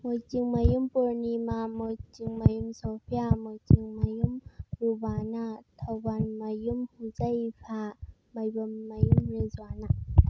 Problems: constant background noise